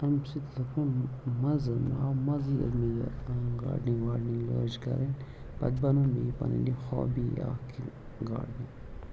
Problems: low volume